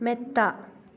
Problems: low volume